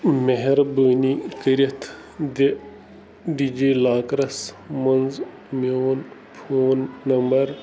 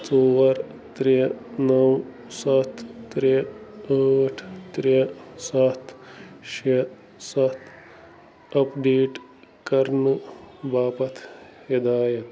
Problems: constant background noise